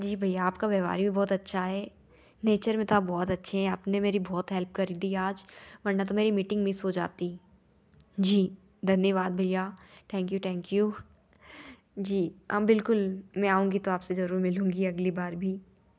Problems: none marked